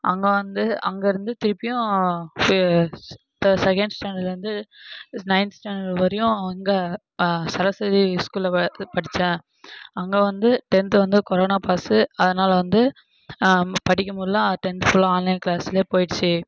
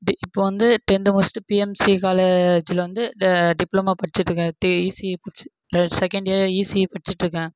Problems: background sounds at intervals